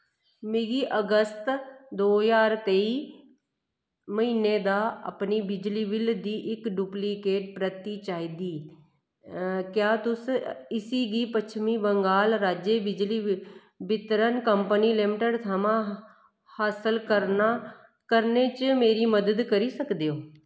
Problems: none marked